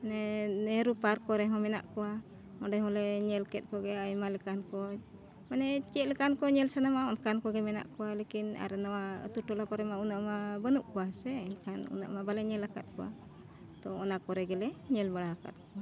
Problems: none marked